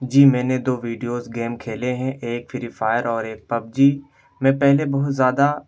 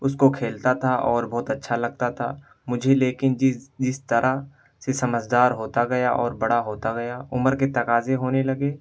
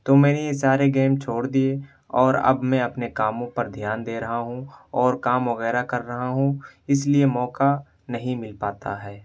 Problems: background sounds at intervals